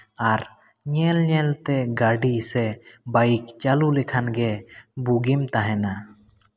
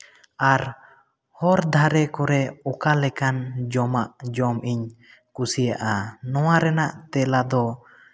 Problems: background sounds at intervals, echo